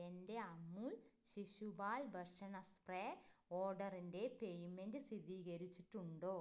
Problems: low volume